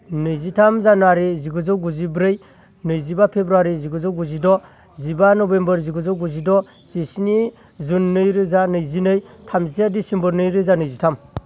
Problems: constant background noise